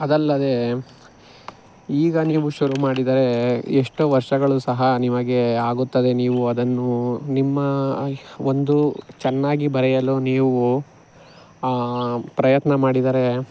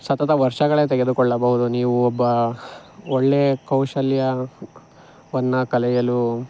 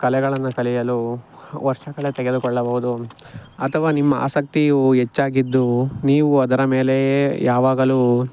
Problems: none marked